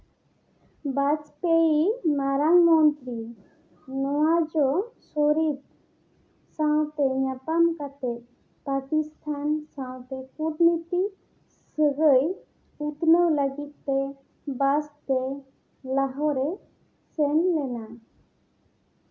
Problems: none marked